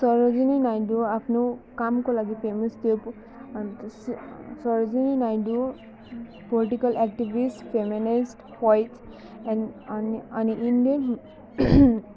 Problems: constant background noise